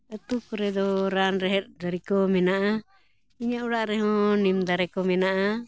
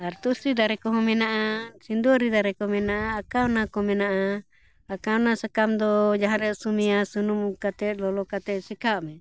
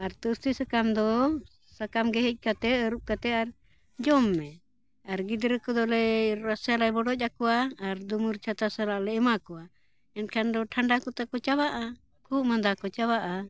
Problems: none marked